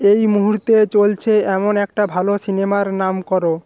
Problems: constant background noise